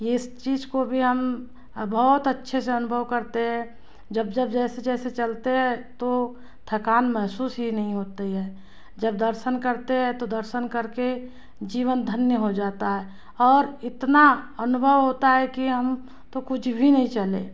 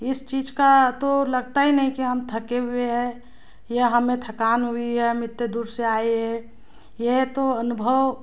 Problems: none marked